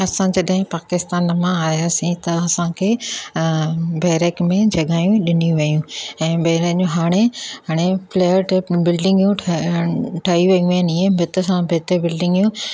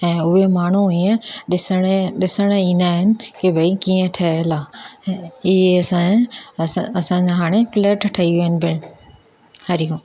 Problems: none marked